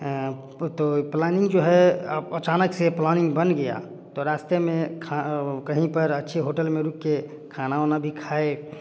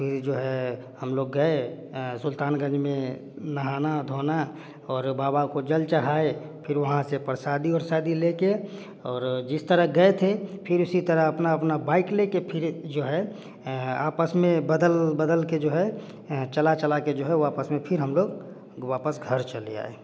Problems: none marked